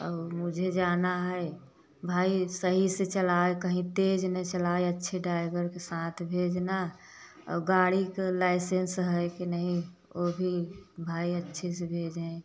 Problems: none marked